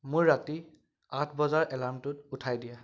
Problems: background sounds at intervals, background conversations at intervals